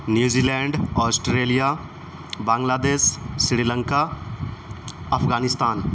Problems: constant background noise